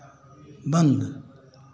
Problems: constant background noise